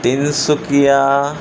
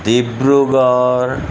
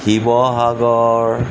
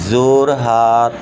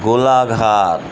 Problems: constant background noise